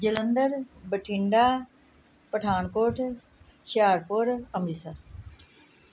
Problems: none marked